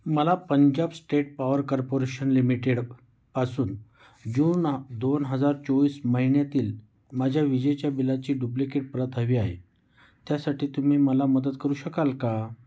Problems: none marked